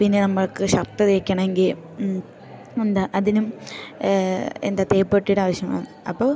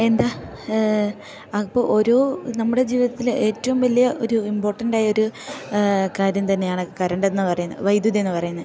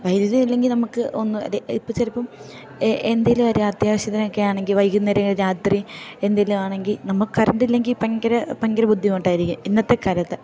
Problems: low volume